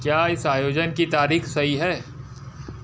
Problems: background sounds at intervals